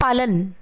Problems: constant background noise